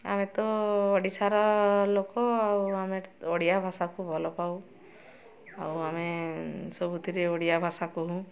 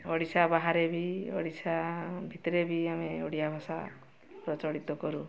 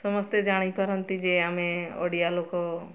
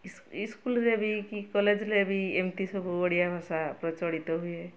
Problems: constant background noise, continuous background conversations